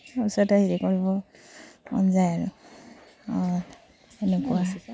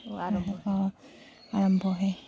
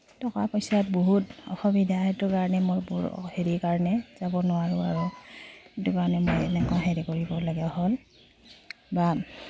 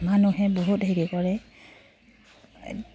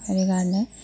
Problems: none marked